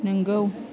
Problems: none marked